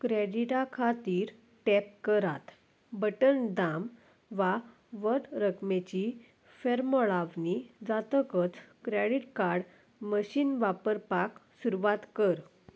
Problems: none marked